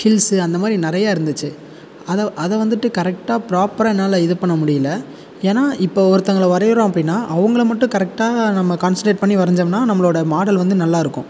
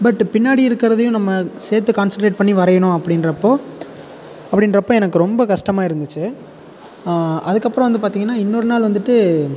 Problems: constant background noise